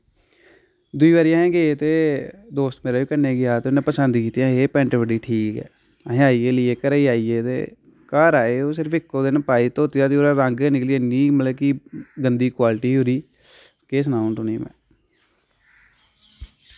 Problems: none marked